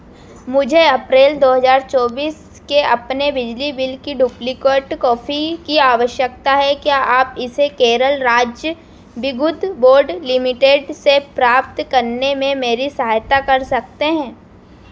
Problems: constant background noise